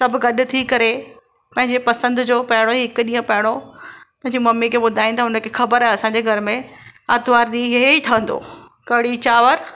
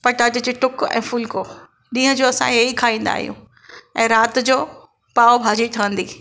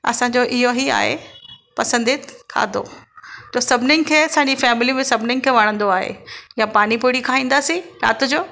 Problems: background sounds at intervals, echo